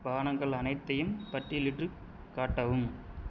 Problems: constant background noise